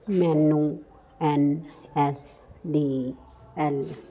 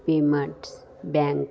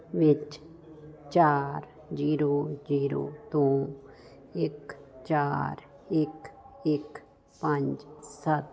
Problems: constant background noise